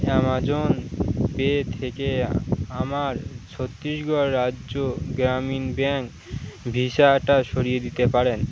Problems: constant background noise, background conversations at intervals